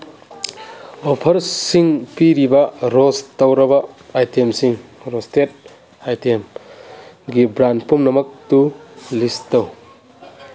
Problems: background sounds at intervals